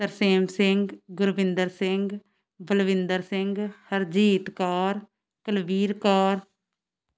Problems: background sounds at intervals